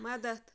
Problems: none marked